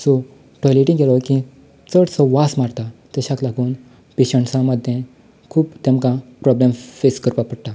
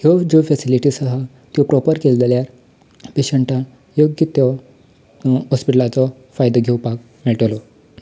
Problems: none marked